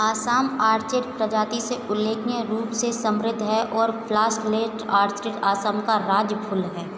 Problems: constant background noise, echo